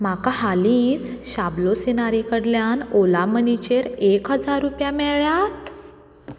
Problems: none marked